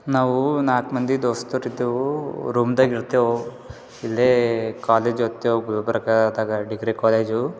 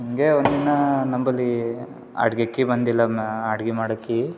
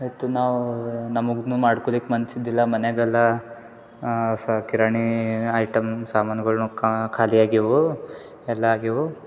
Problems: none marked